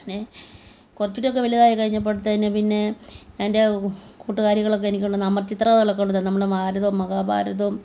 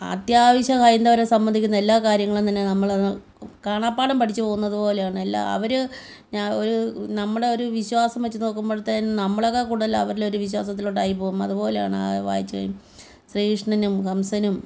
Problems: background conversations at intervals